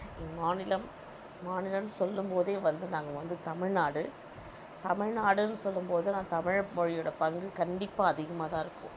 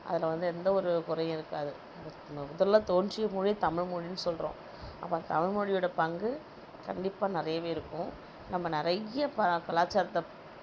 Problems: none marked